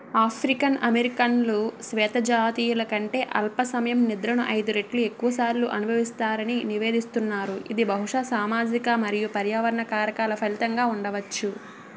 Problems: background sounds at intervals